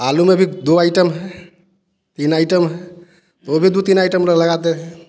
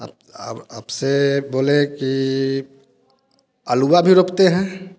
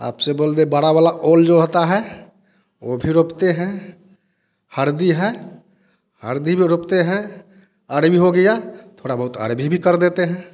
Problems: constant background noise